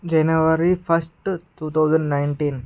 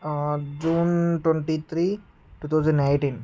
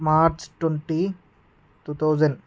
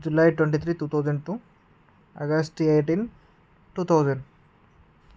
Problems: background sounds at intervals